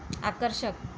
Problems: background sounds at intervals